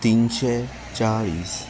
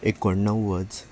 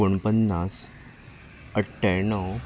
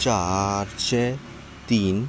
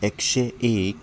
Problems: background sounds at intervals